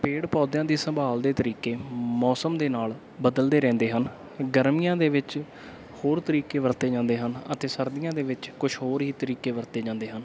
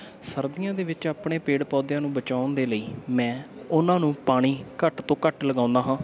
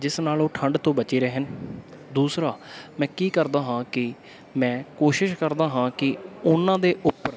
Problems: background sounds at intervals